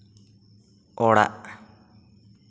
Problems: echo